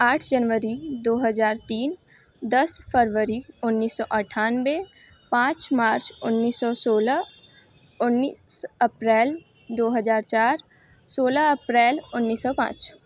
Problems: none marked